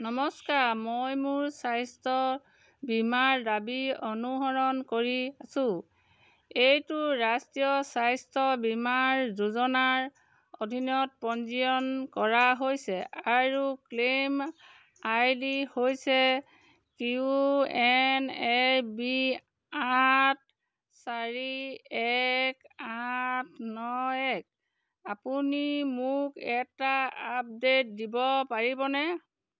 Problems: constant background noise